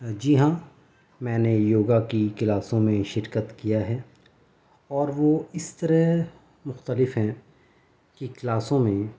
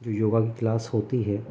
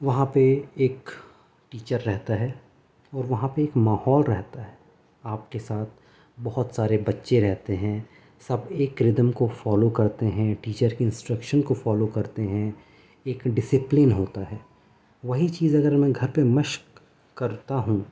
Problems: none marked